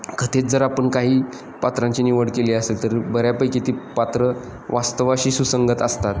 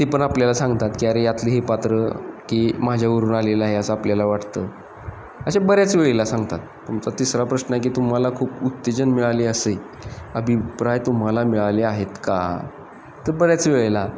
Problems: constant background noise, background conversations at intervals